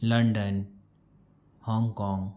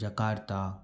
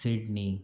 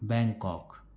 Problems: none marked